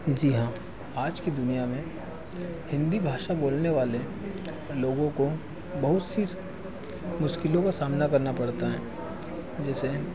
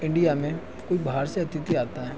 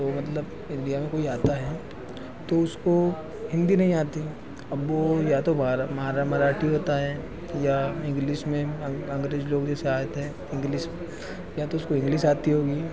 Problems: constant background noise